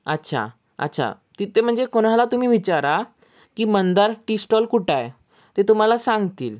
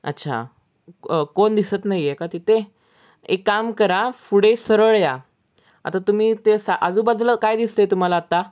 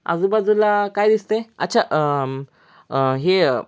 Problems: background sounds at intervals